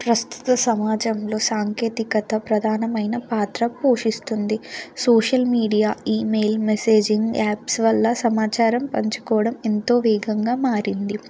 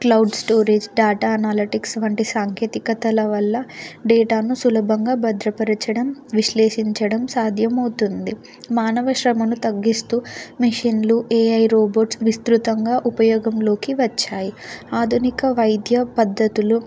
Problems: background sounds at intervals